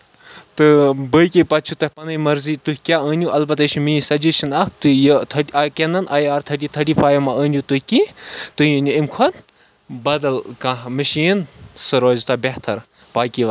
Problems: none marked